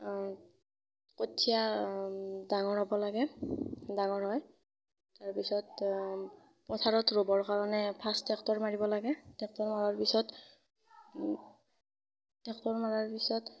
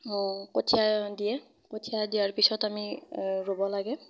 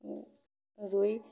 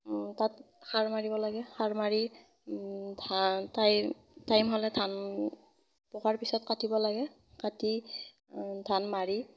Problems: none marked